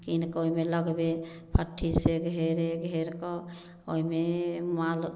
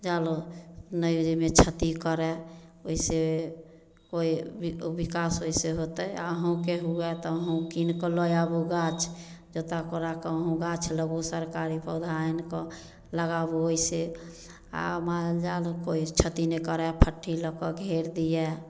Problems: none marked